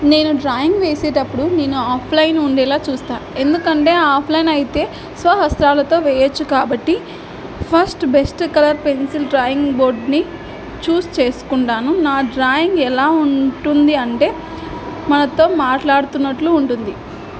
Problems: background sounds at intervals